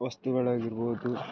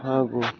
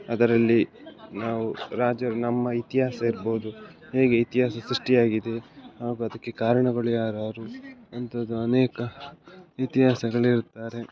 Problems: background sounds at intervals